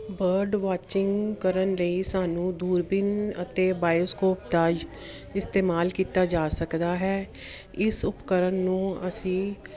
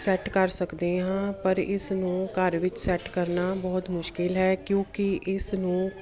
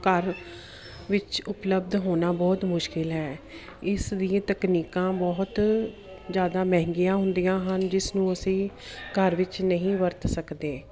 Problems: none marked